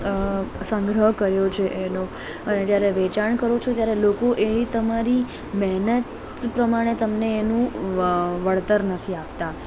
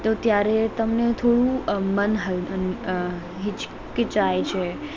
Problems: continuous background conversations